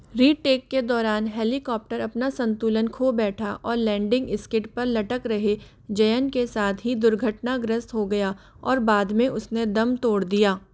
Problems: constant background noise